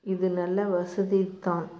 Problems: constant background noise